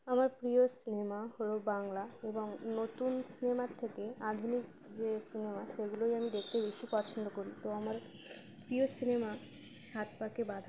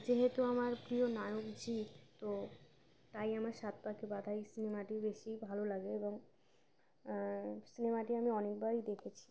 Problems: constant background noise